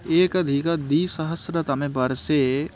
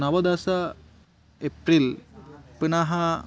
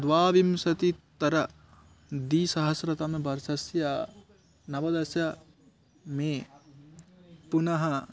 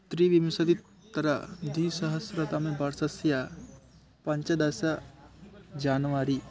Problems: background sounds at intervals